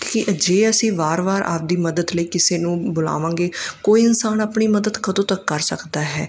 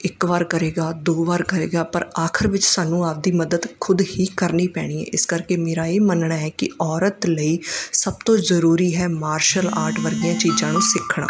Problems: background sounds at intervals